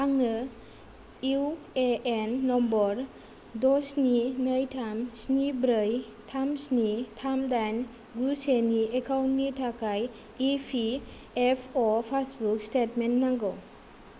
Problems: low volume